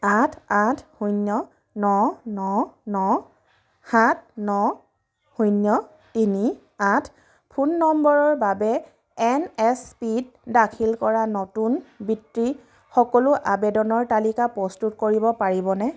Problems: background sounds at intervals